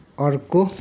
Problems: none marked